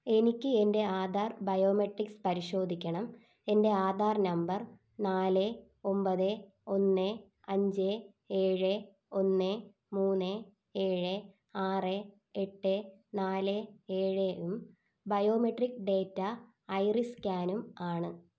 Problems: none marked